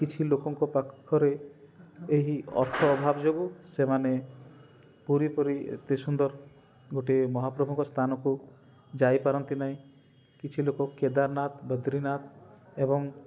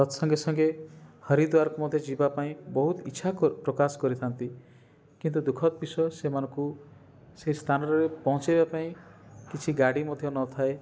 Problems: none marked